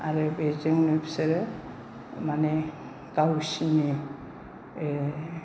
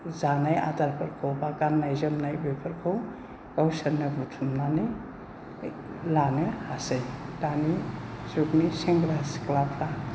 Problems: low volume